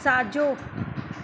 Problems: constant background noise, echo